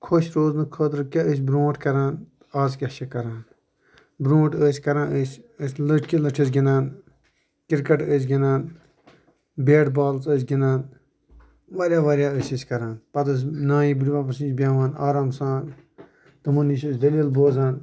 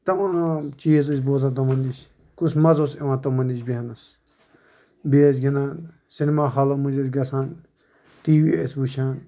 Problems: constant background noise